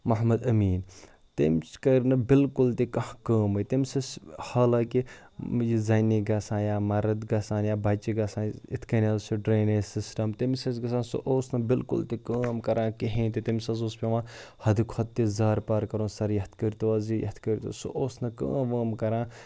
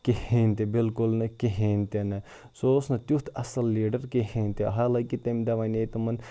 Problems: none marked